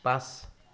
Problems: background sounds at intervals